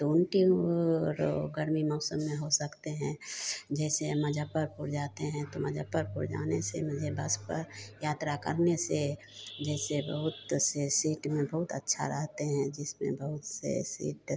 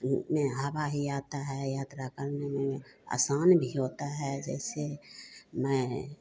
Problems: none marked